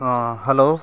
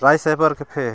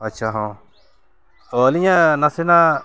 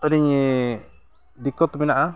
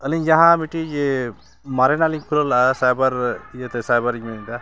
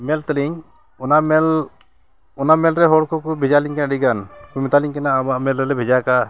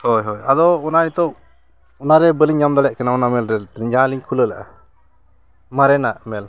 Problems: background sounds at intervals